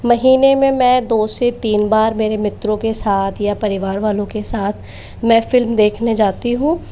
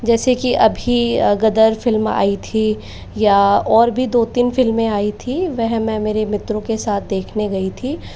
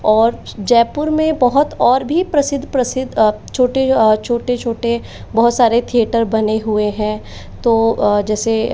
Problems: background sounds at intervals, echo